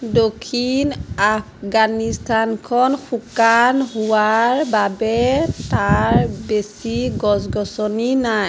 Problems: none marked